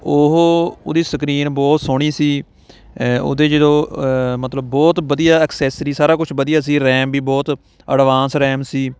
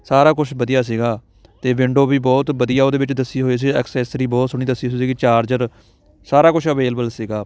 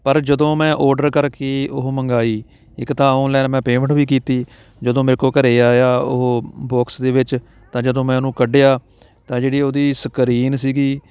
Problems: background sounds at intervals, background conversations at intervals